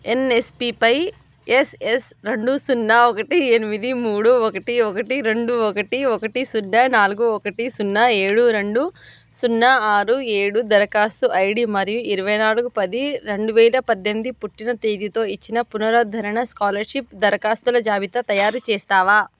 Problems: background sounds at intervals